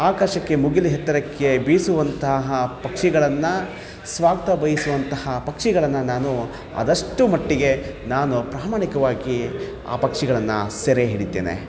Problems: none marked